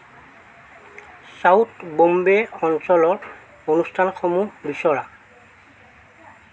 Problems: constant background noise